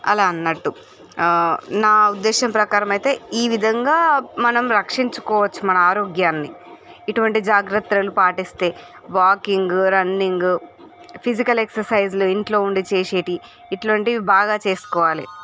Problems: background sounds at intervals, background conversations at intervals